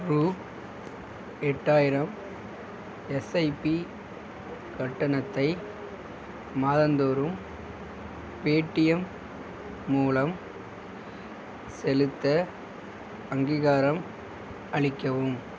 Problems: constant background noise